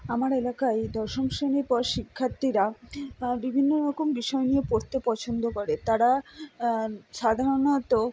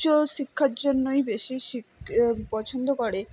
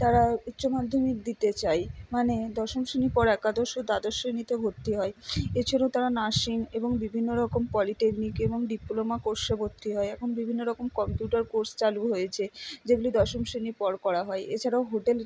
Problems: none marked